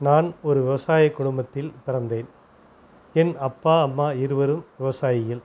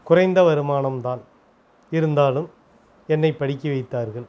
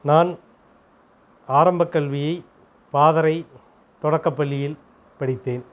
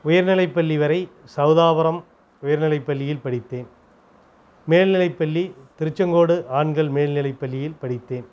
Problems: background conversations at intervals